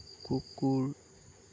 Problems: low volume